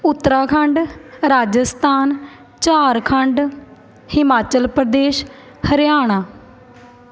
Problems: none marked